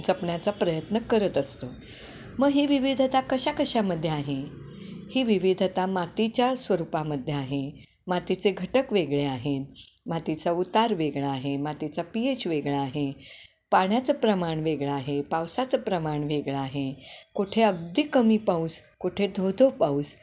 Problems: none marked